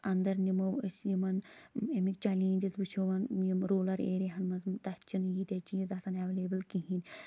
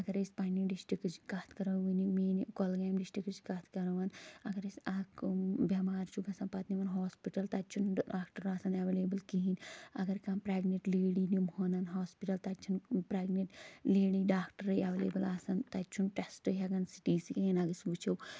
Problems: none marked